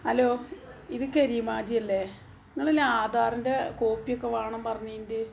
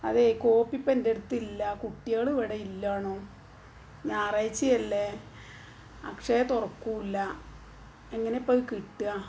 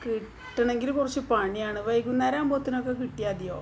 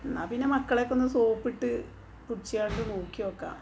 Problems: background sounds at intervals